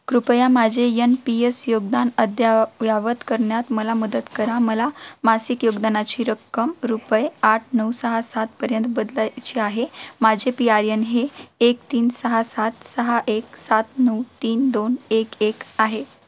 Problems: constant background noise